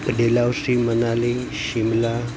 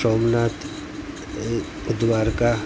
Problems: constant background noise